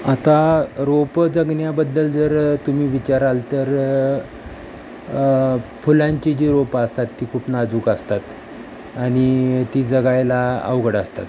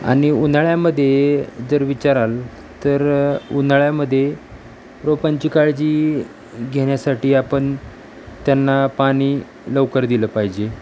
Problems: constant background noise